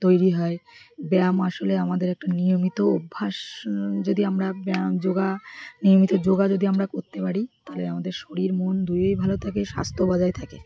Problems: constant background noise, continuous background conversations